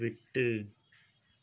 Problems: low volume